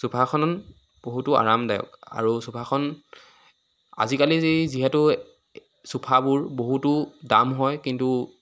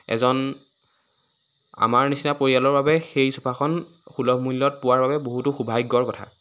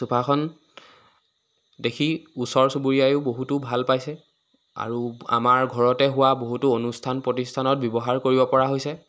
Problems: constant background noise